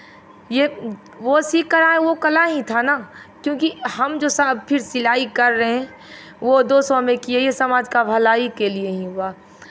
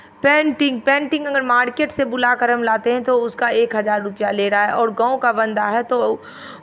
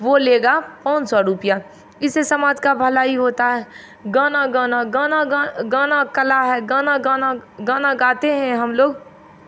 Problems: constant background noise